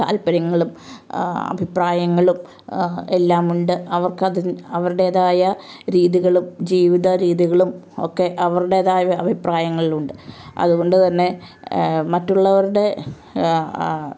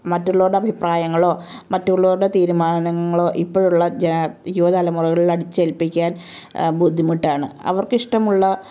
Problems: background sounds at intervals